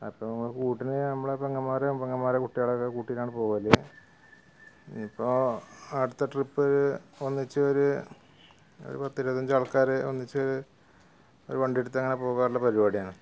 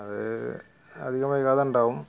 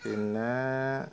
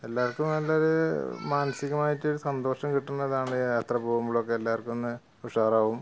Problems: background sounds at intervals, background conversations at intervals